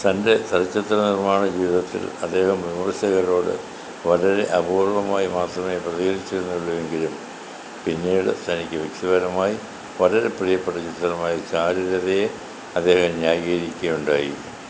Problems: constant background noise